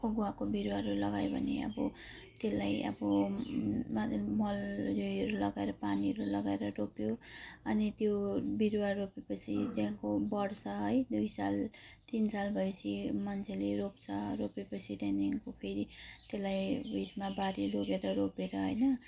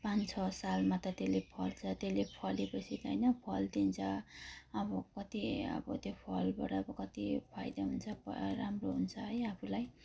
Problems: low volume